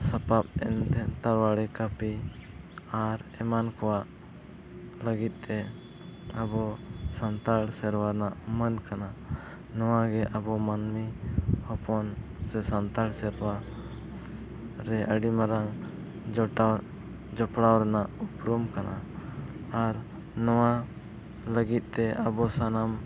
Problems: background sounds at intervals